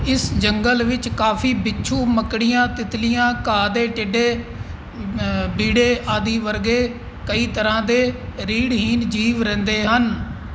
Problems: none marked